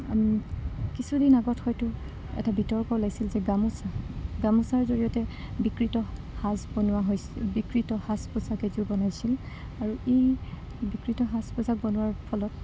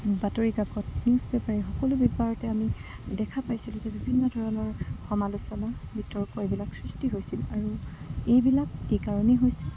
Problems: constant background noise, low volume